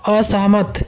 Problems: constant background noise, continuous background conversations